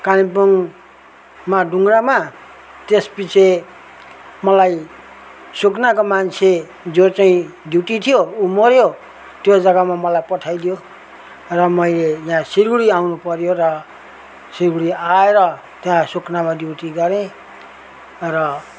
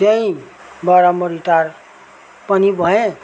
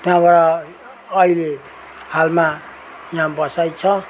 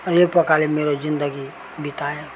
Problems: constant background noise